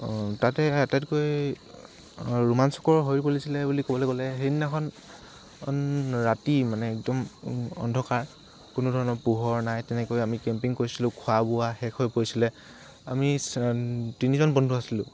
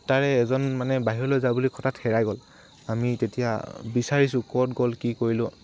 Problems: constant background noise